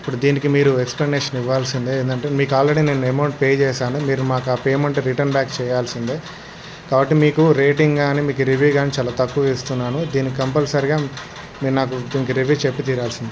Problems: constant background noise